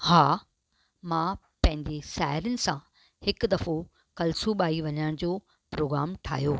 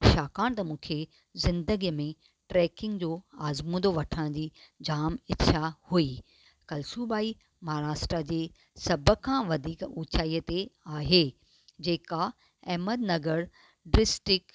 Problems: none marked